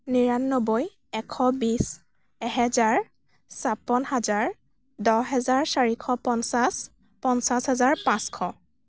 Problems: none marked